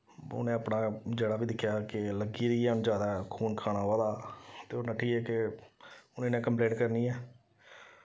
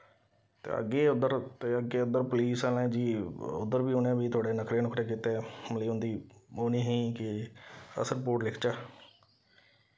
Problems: none marked